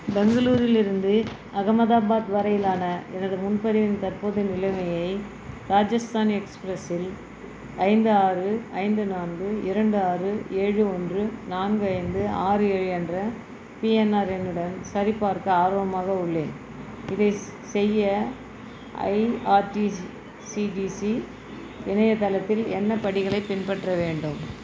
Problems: constant background noise